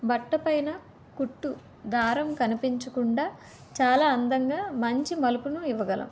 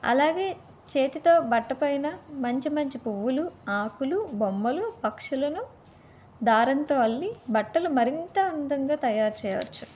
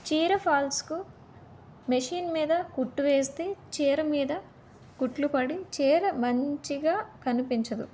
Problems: none marked